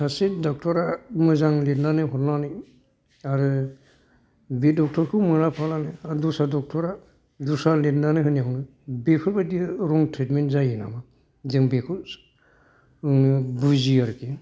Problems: background sounds at intervals